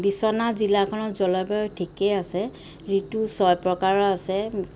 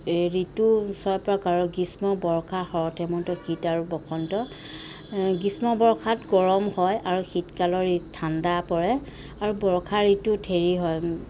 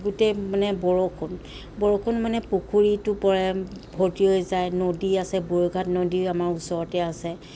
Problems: constant background noise